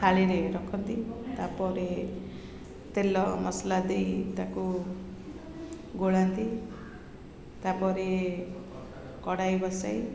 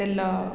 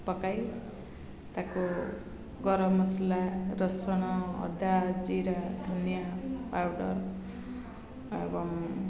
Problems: constant background noise, continuous background conversations